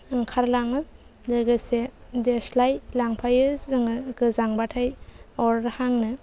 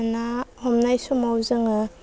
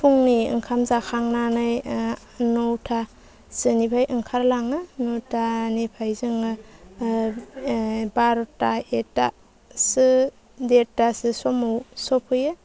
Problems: low volume